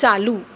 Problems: none marked